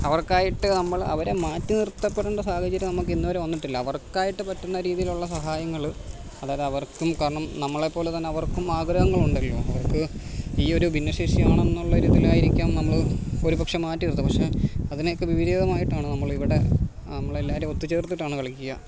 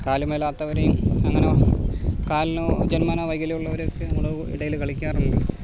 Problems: constant background noise